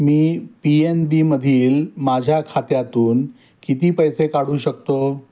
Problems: none marked